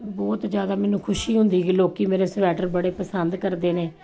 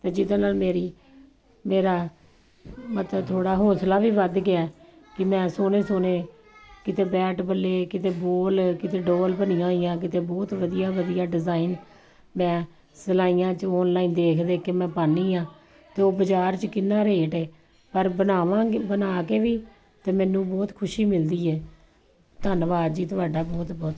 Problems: background sounds at intervals